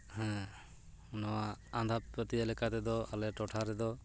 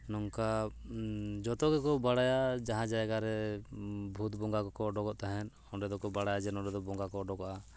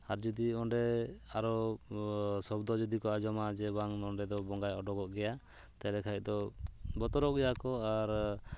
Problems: background sounds at intervals